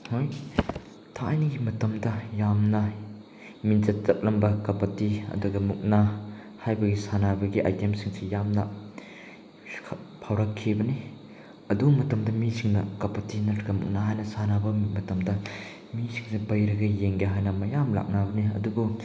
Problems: none marked